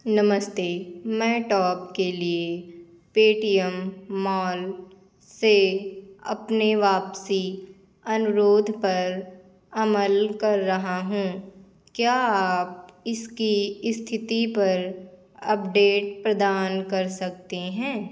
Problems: none marked